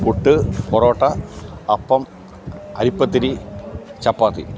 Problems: constant background noise